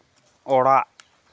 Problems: none marked